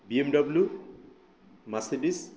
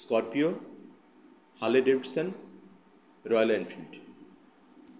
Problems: constant background noise